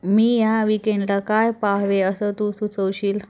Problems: background sounds at intervals